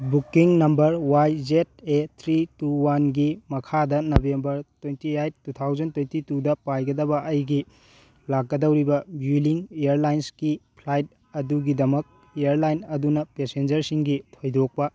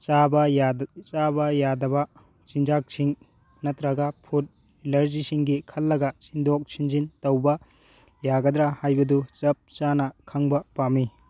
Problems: none marked